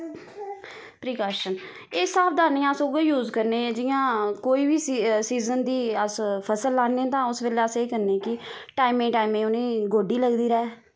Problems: constant background noise